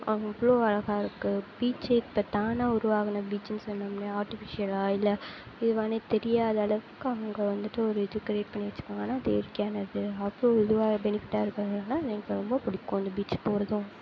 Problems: constant background noise